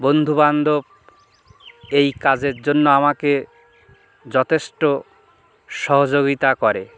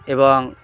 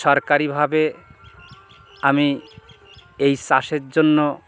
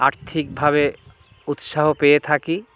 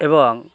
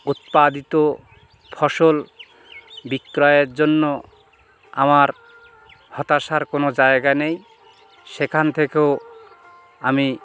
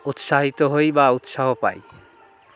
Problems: background sounds at intervals, background conversations at intervals